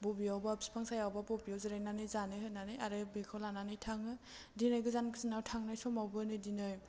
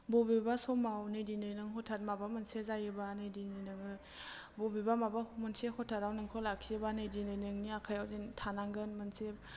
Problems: none marked